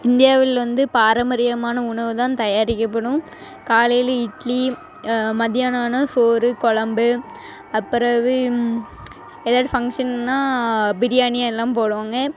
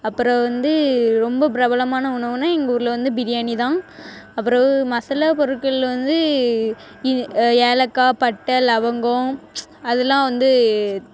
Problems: constant background noise